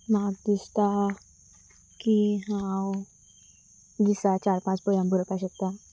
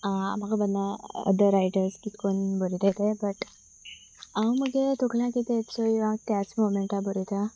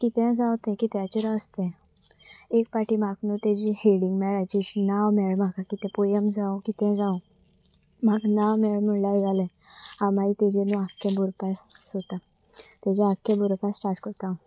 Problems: constant background noise